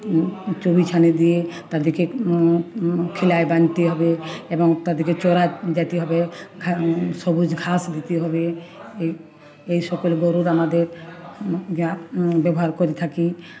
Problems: none marked